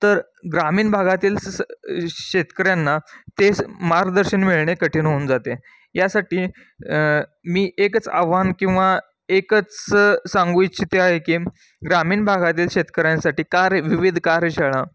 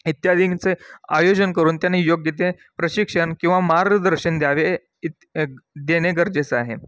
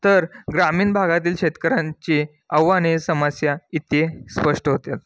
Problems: background sounds at intervals